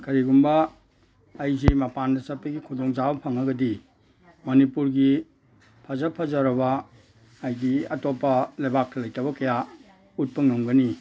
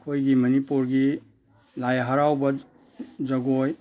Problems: none marked